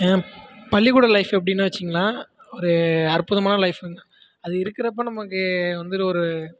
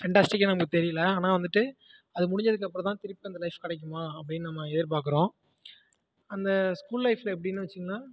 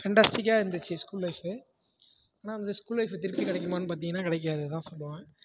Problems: background sounds at intervals, background conversations at intervals